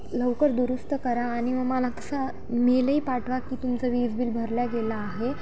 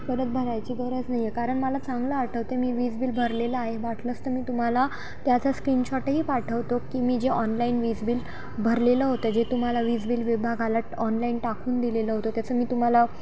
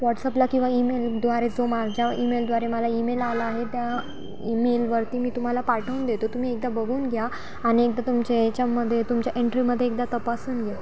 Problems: constant background noise